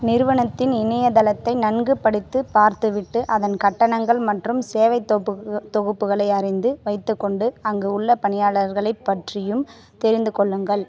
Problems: continuous background conversations